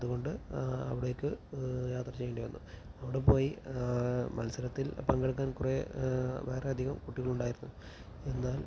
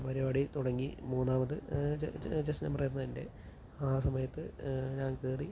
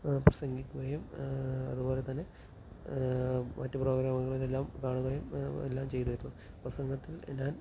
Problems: constant background noise, low volume